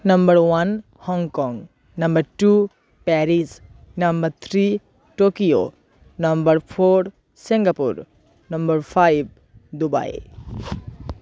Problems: none marked